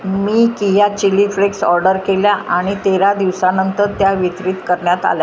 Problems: background sounds at intervals